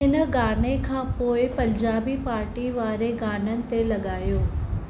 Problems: constant background noise